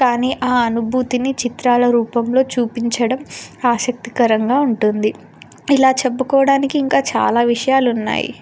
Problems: none marked